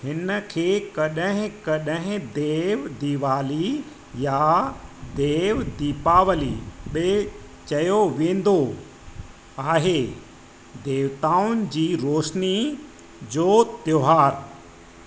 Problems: constant background noise, echo